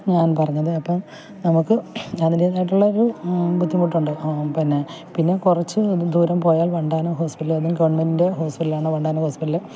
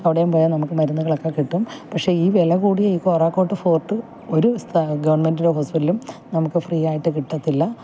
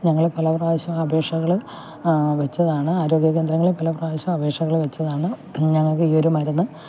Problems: background sounds at intervals, low volume